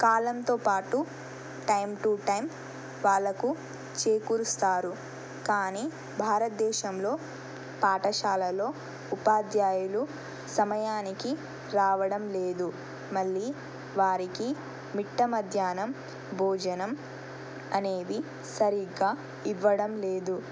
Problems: constant background noise